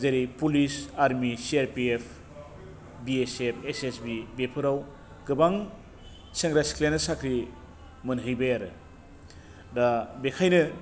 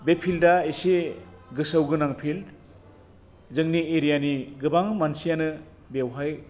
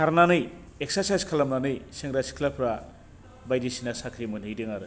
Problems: constant background noise